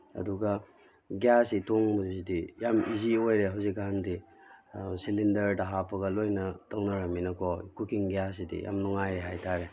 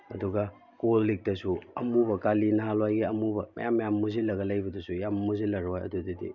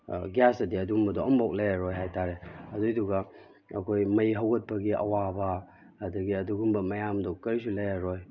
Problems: background sounds at intervals